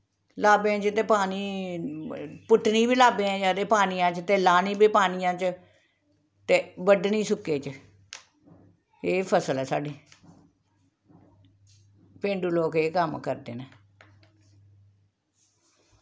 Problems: background sounds at intervals